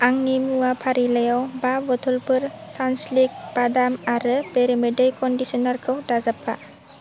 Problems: constant background noise